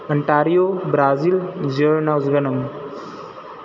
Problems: none marked